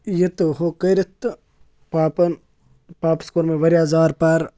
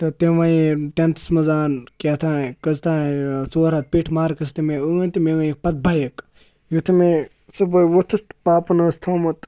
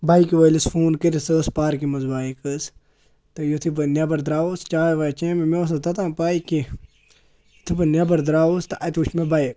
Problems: background sounds at intervals